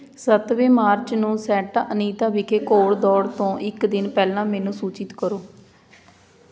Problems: none marked